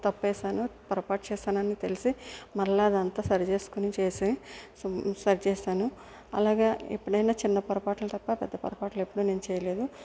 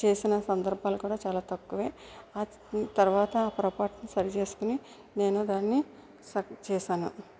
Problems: constant background noise